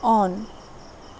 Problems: none marked